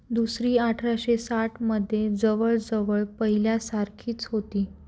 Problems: none marked